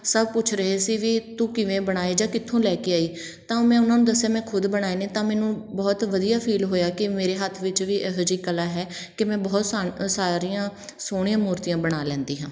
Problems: none marked